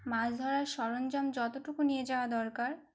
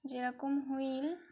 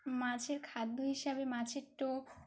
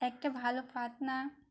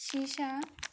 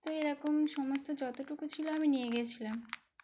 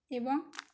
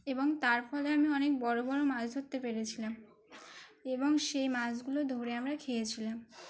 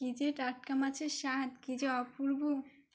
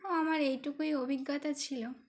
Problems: constant background noise